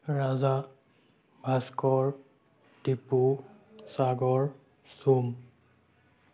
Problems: none marked